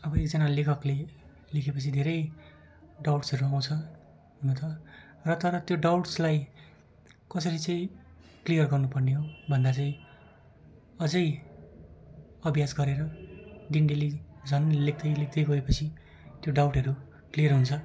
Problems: continuous background conversations